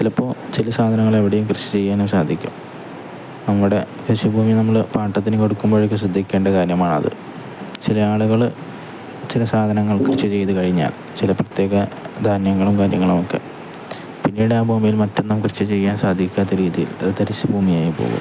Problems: background sounds at intervals